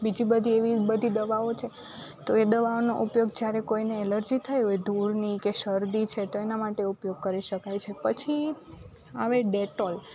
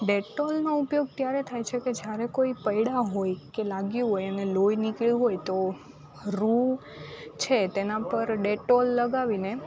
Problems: constant background noise